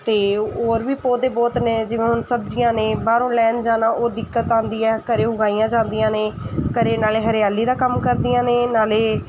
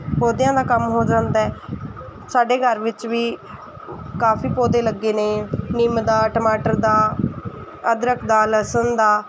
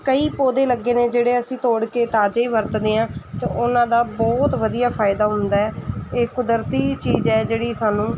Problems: none marked